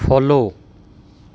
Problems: none marked